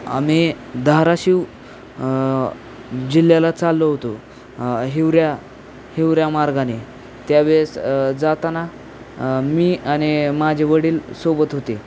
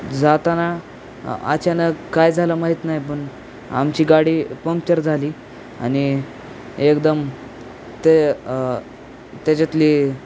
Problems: constant background noise